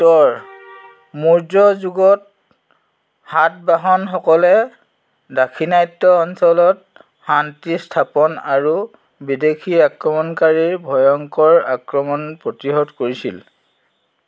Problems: background sounds at intervals